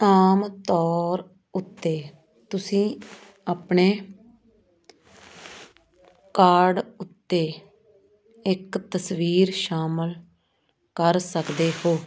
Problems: constant background noise